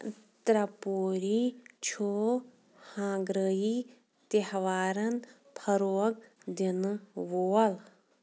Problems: none marked